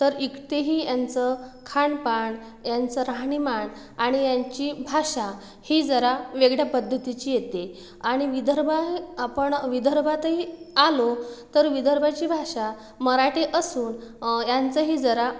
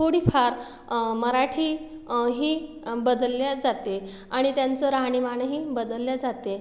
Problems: none marked